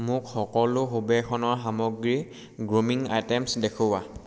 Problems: none marked